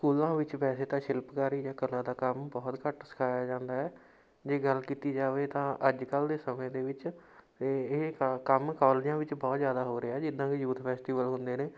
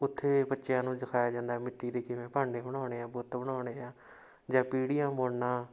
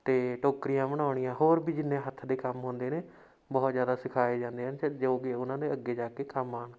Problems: background sounds at intervals